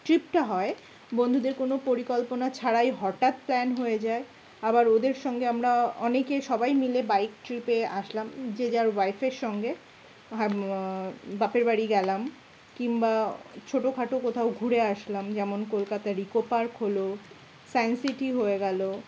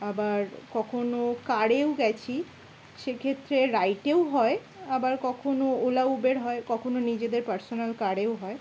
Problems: none marked